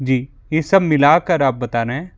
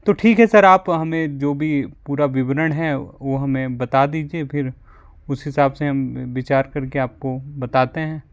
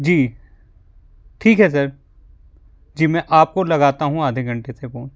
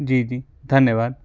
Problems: background sounds at intervals